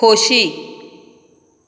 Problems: none marked